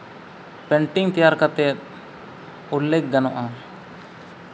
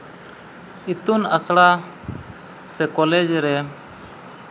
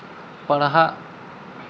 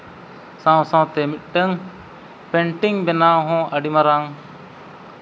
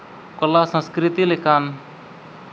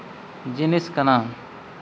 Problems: background sounds at intervals